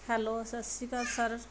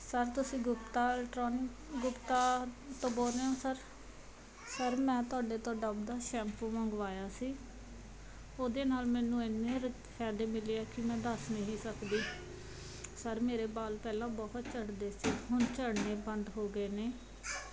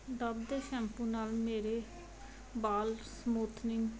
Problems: background sounds at intervals